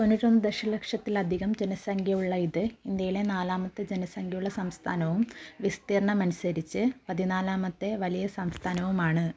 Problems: low volume